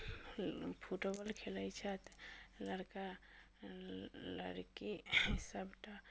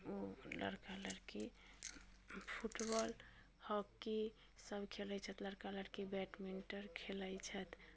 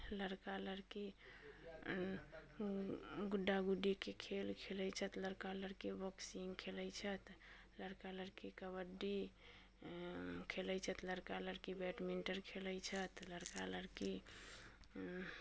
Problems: low volume